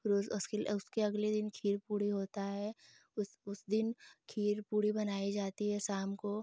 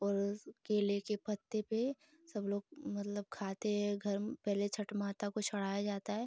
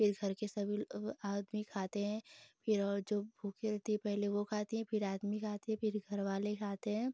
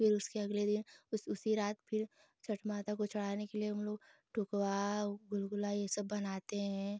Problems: constant background noise